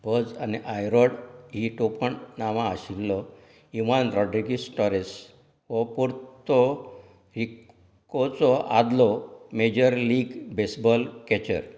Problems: background conversations at intervals